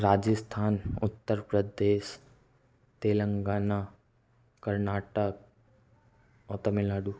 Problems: background sounds at intervals